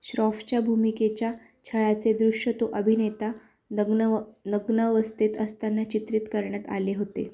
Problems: constant background noise